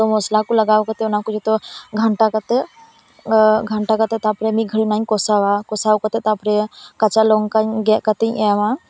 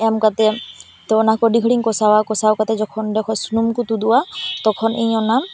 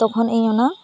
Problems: constant background noise